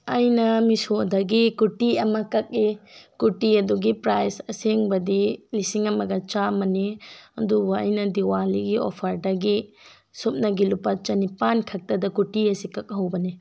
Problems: none marked